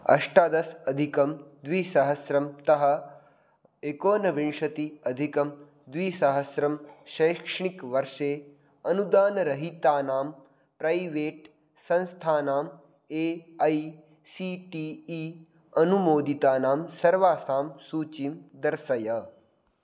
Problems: none marked